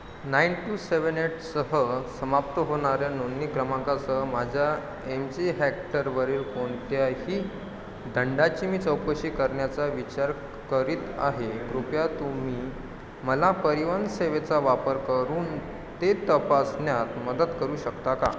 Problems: constant background noise